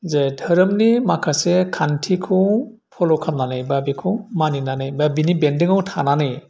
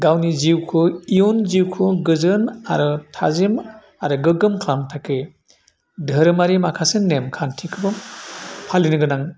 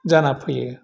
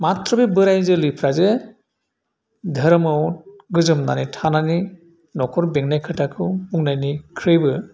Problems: none marked